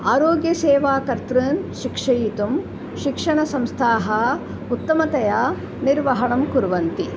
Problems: constant background noise